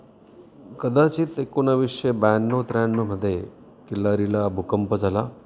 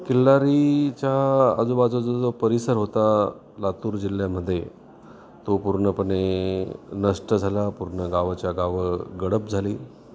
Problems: constant background noise, continuous background conversations